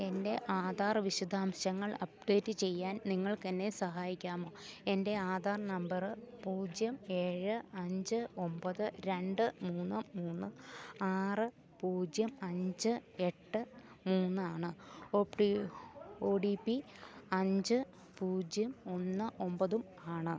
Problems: none marked